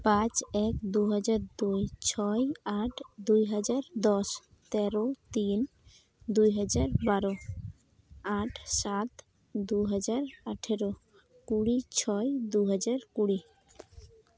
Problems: none marked